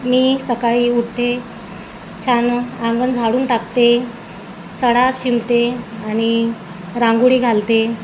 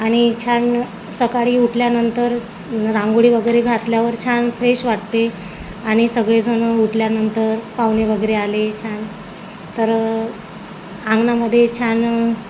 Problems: constant background noise, background conversations at intervals